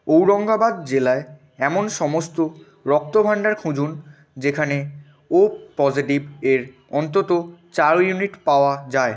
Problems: continuous background conversations